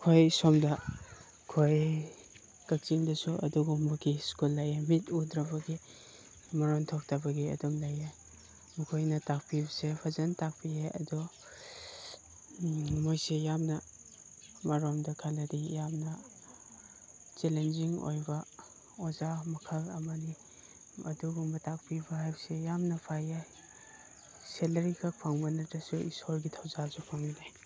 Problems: background sounds at intervals